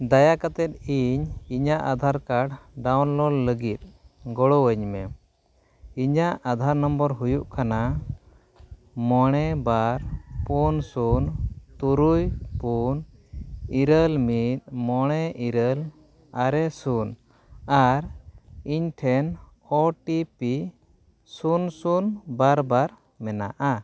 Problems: none marked